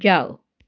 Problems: background sounds at intervals